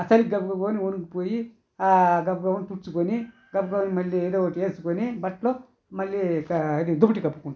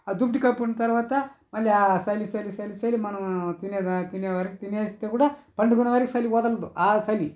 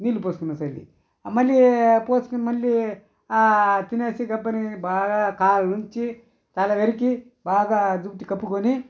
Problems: constant background noise